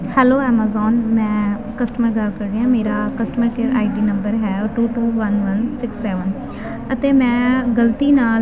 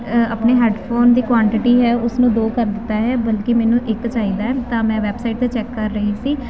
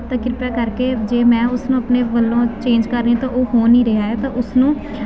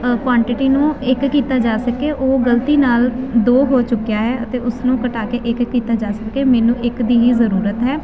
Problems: constant background noise